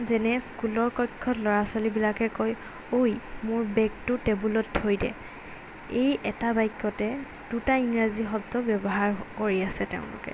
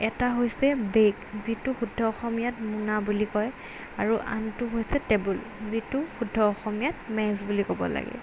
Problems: background sounds at intervals